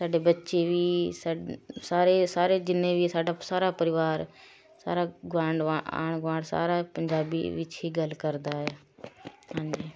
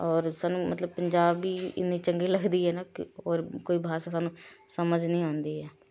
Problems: constant background noise